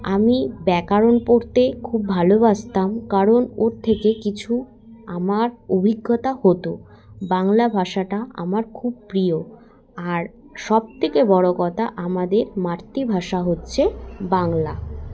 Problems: constant background noise, continuous background conversations